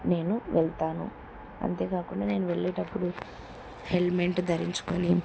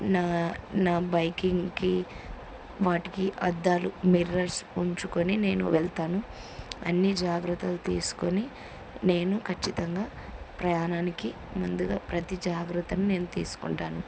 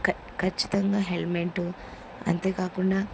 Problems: none marked